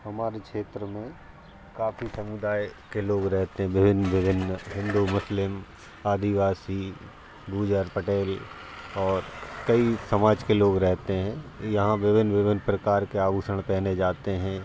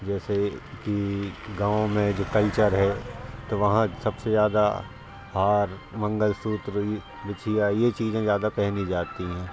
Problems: constant background noise, background conversations at intervals